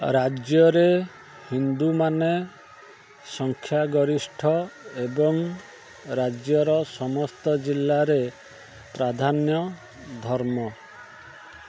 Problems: constant background noise